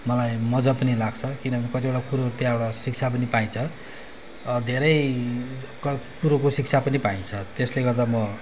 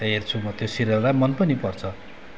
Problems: background sounds at intervals